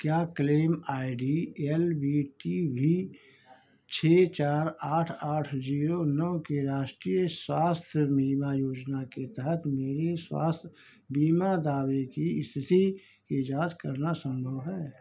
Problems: none marked